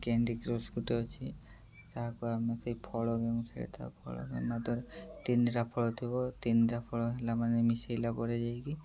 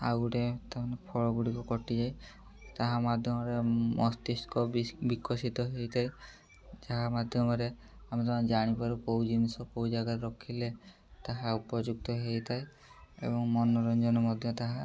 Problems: background sounds at intervals